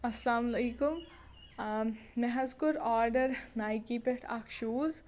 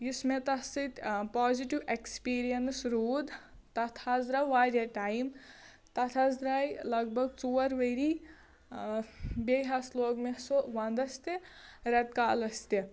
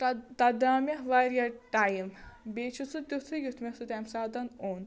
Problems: none marked